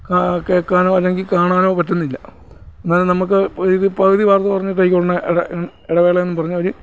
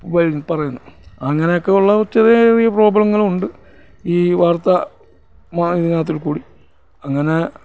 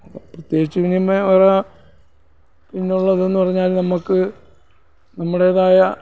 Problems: none marked